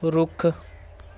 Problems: none marked